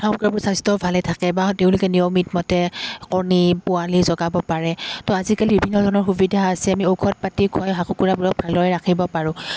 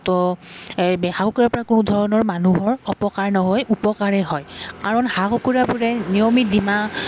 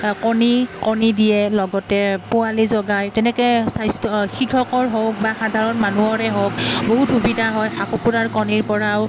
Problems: none marked